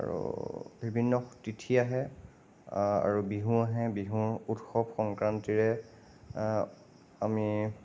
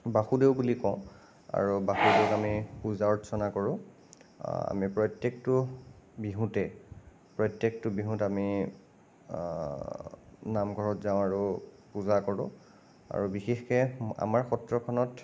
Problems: none marked